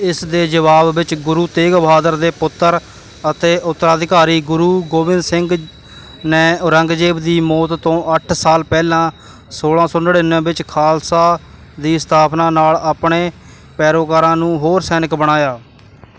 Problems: none marked